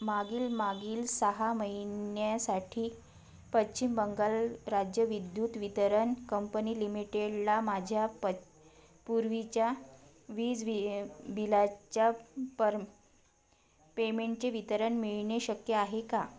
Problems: none marked